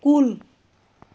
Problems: constant background noise